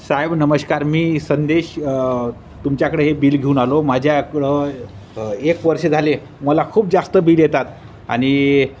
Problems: constant background noise, background conversations at intervals